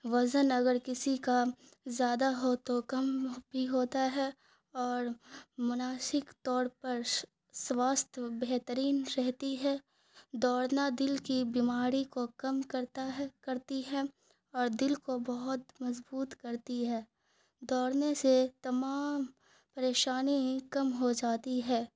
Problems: none marked